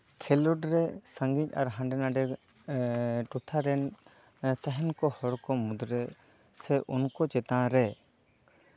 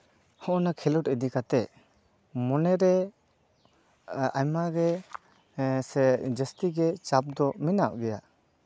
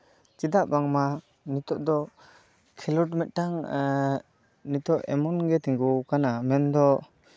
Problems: none marked